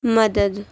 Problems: constant background noise